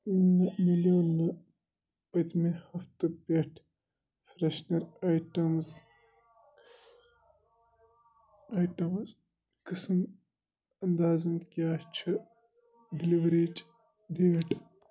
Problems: none marked